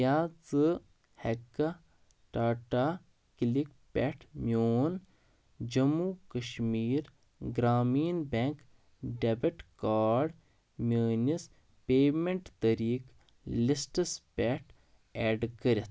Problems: background sounds at intervals